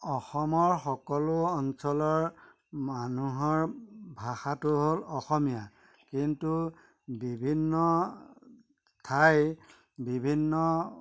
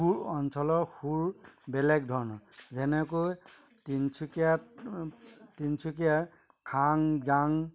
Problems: constant background noise, background conversations at intervals